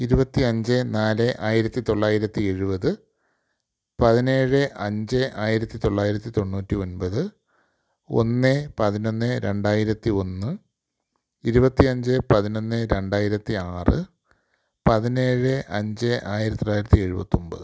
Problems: none marked